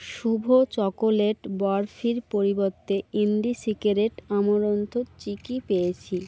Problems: none marked